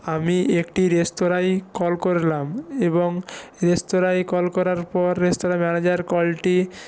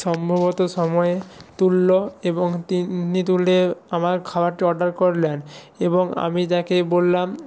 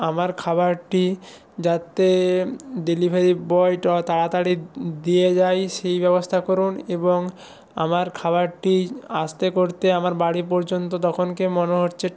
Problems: none marked